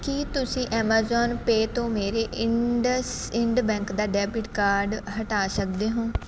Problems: none marked